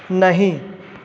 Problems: none marked